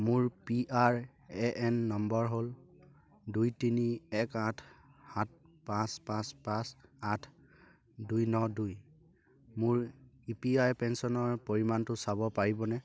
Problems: none marked